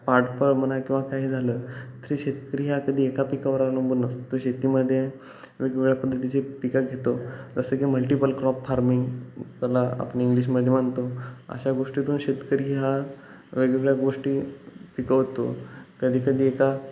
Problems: constant background noise